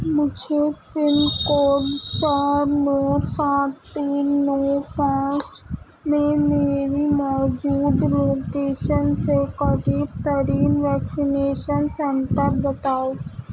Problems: constant background noise